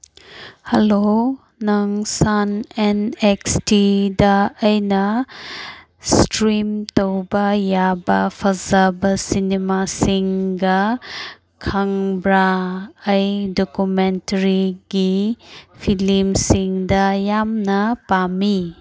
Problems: none marked